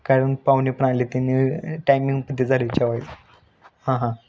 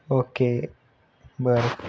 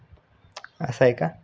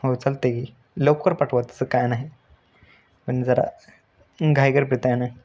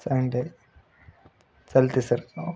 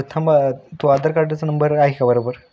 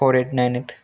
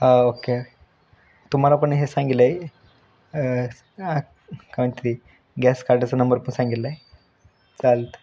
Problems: none marked